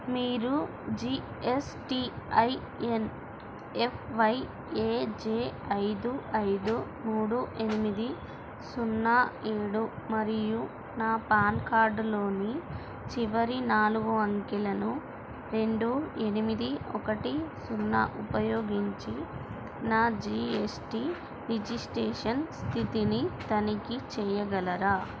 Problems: constant background noise, low volume